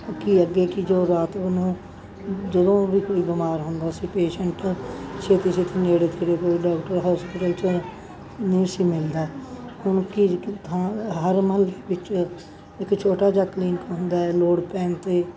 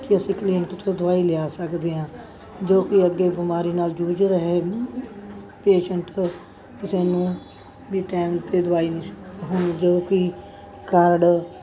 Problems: background sounds at intervals, background conversations at intervals